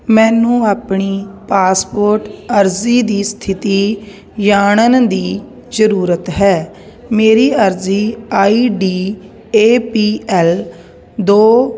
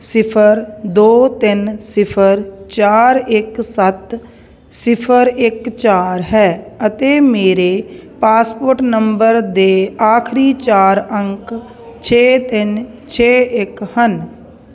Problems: none marked